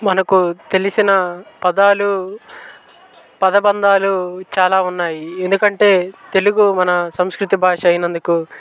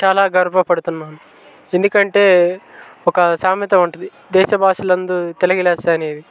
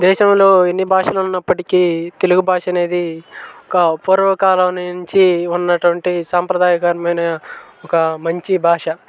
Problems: constant background noise, background conversations at intervals